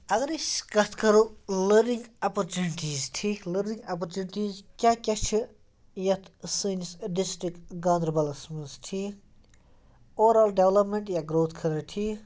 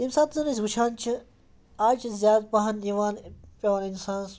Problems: background sounds at intervals